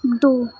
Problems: background sounds at intervals